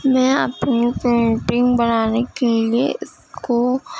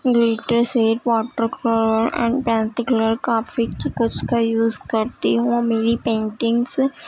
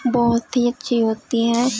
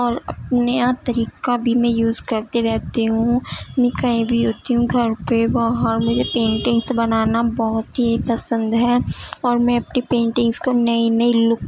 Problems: constant background noise, low volume